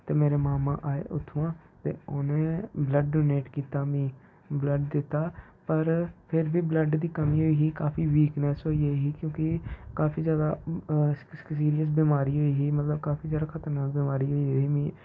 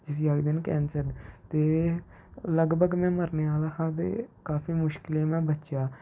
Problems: low volume